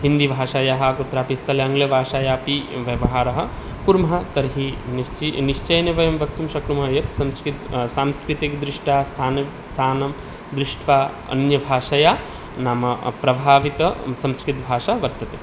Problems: background sounds at intervals